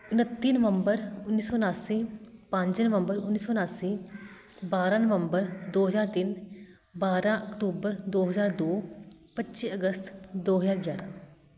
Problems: background sounds at intervals